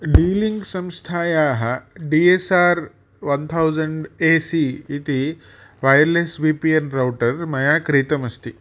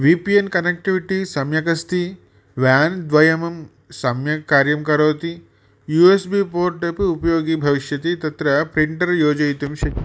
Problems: none marked